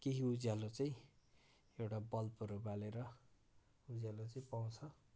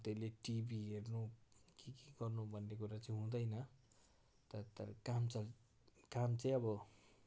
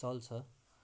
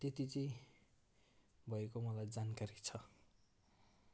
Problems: background sounds at intervals